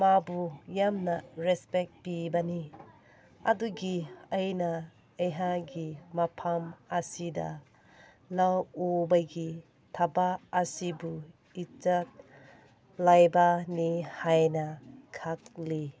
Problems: background conversations at intervals